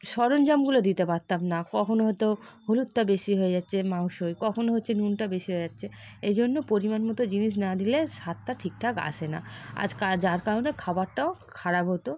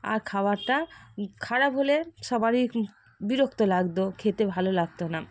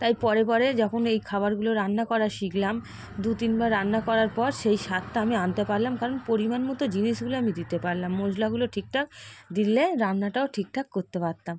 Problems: none marked